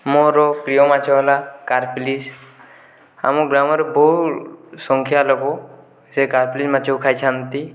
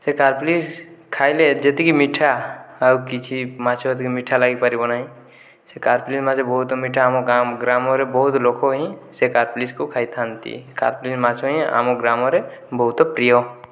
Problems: none marked